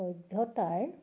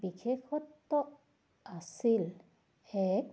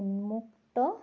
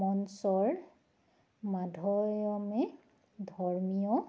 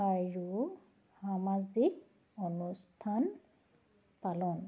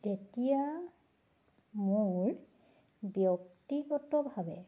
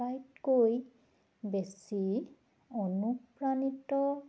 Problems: background sounds at intervals